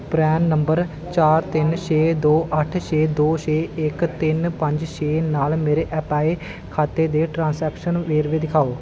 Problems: constant background noise